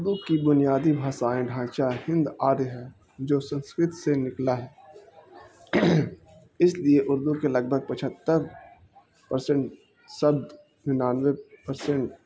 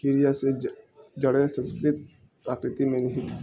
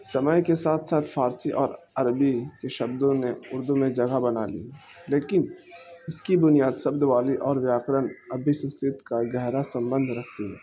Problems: constant background noise